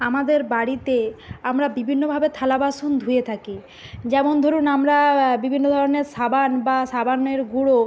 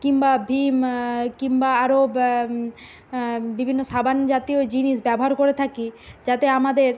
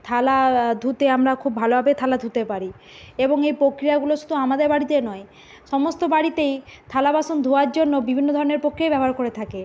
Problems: none marked